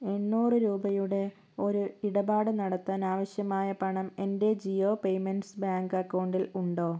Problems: low volume